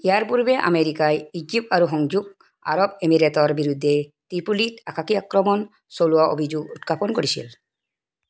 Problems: background sounds at intervals